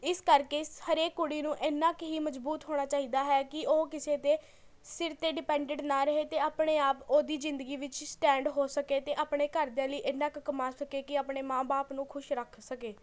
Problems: background sounds at intervals, continuous background conversations